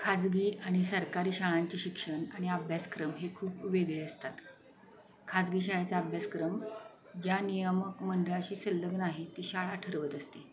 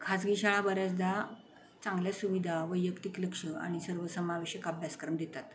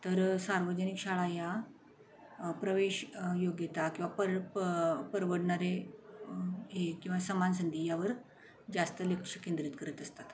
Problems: constant background noise, background conversations at intervals